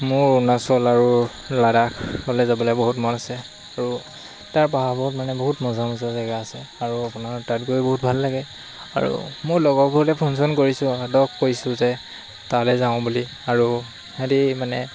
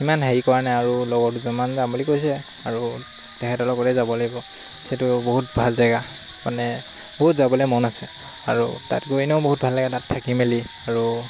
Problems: constant background noise